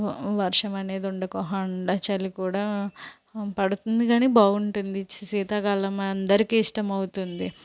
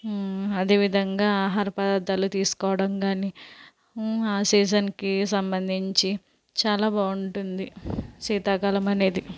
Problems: constant background noise